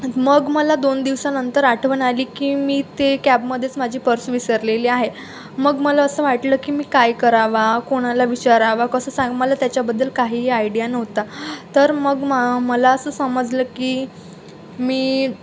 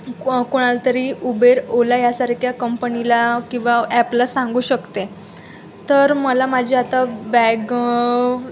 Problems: constant background noise, background conversations at intervals